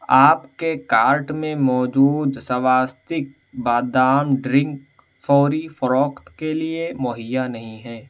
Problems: constant background noise, background conversations at intervals